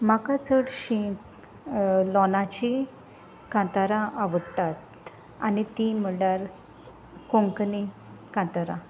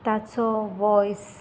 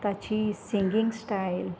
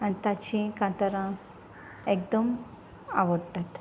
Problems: constant background noise